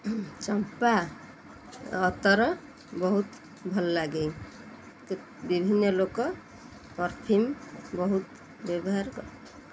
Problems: constant background noise